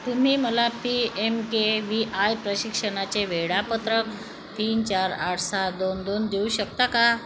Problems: constant background noise, echo